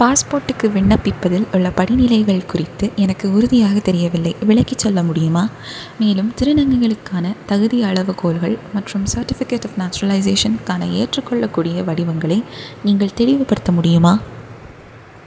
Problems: none marked